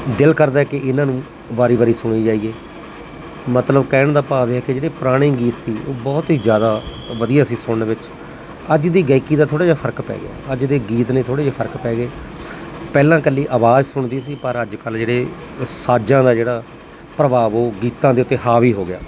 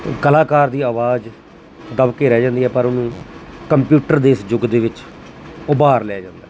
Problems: none marked